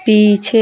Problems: constant background noise